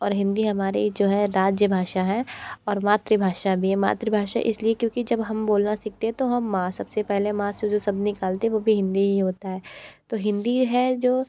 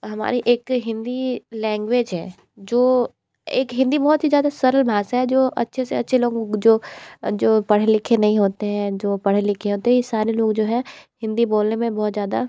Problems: constant background noise